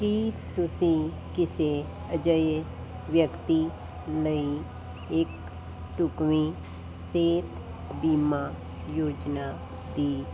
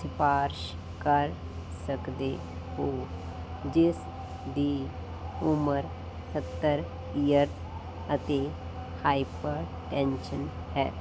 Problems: constant background noise